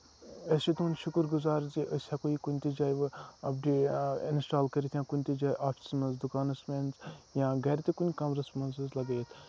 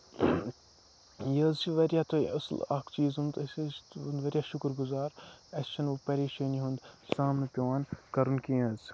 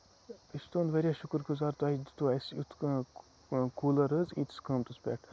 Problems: background sounds at intervals